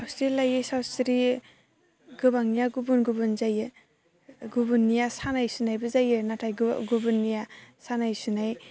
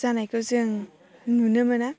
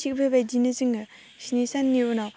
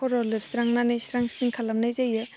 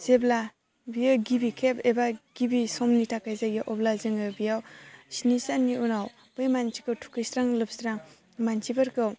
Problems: constant background noise